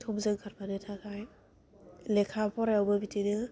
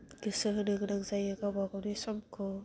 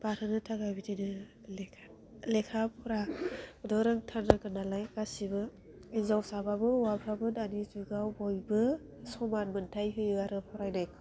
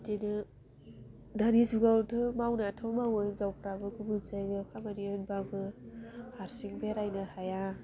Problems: none marked